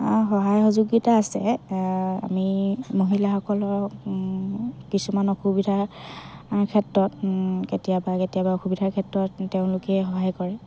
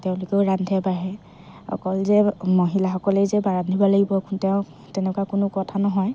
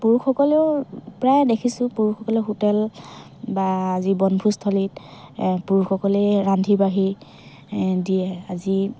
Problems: constant background noise, background conversations at intervals